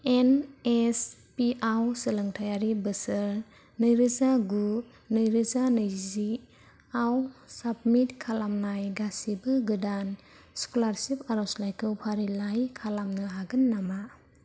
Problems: low volume